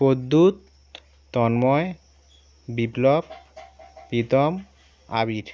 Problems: constant background noise